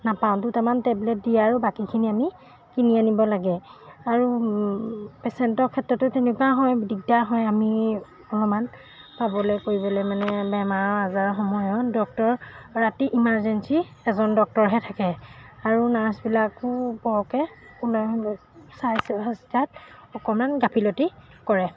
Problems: background sounds at intervals